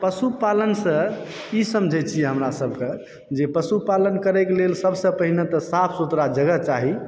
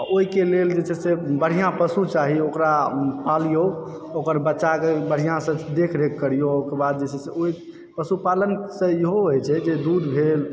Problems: background sounds at intervals, background conversations at intervals